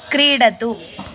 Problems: constant background noise